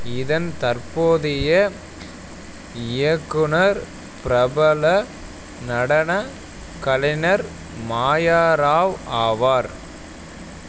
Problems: constant background noise